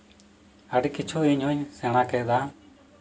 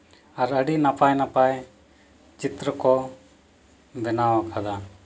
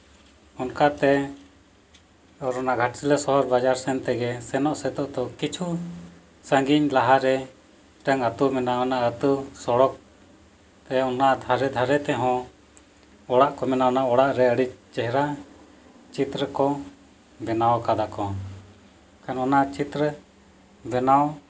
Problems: none marked